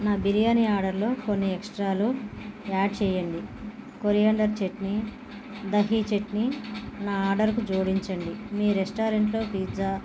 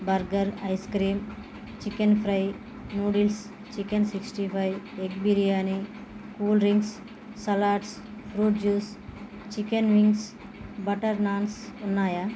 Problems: constant background noise